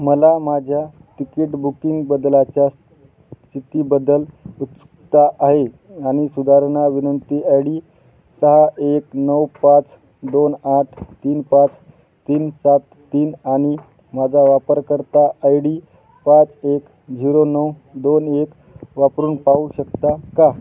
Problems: constant background noise